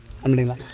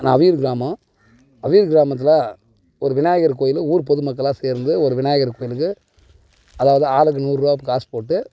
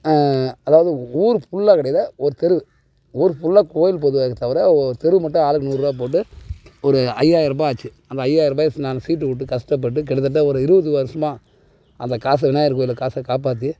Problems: background sounds at intervals